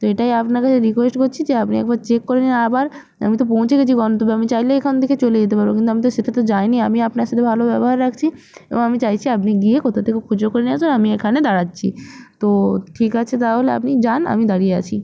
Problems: none marked